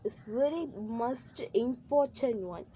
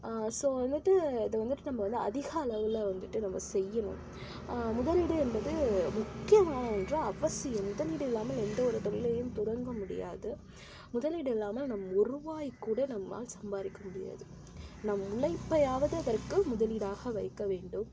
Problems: constant background noise, low volume